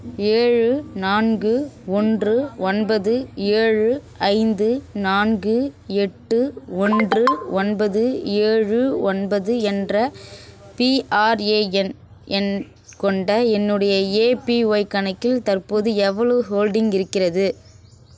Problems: constant background noise